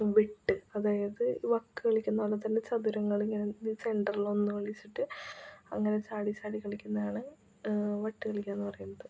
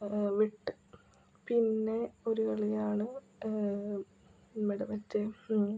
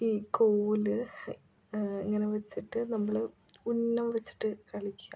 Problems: constant background noise, low volume